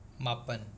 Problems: background sounds at intervals